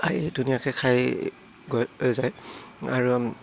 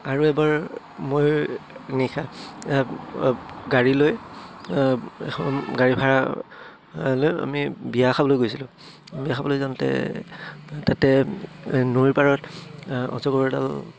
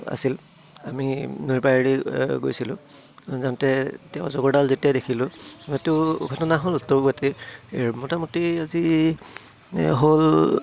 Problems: low volume